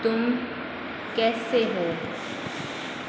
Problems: constant background noise